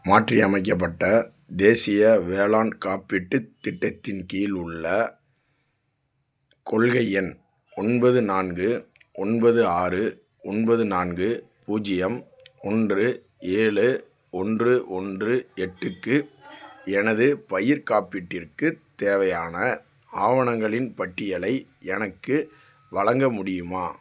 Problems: none marked